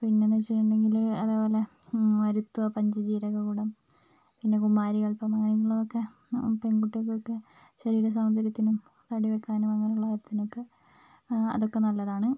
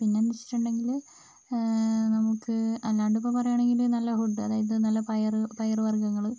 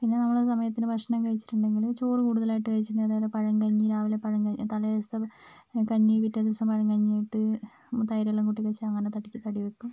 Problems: constant background noise, low volume